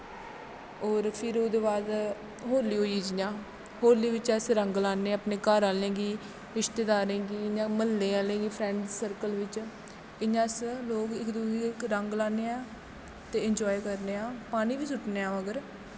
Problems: constant background noise, background conversations at intervals, echo